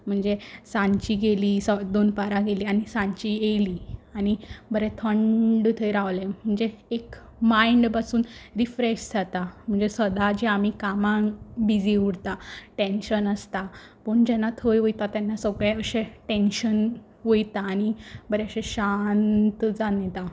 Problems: constant background noise